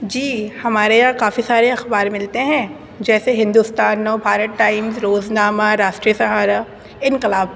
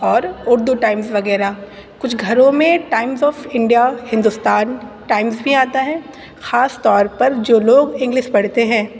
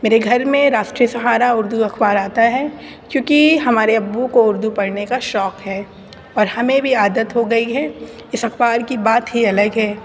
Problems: constant background noise